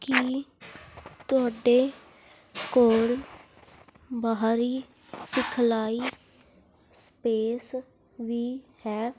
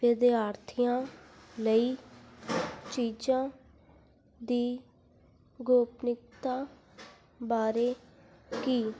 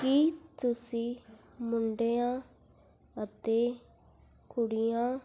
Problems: constant background noise